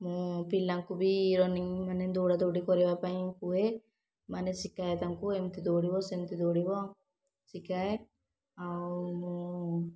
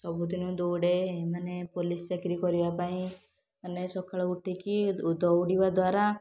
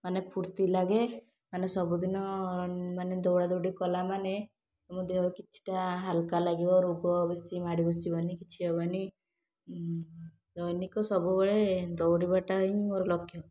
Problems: none marked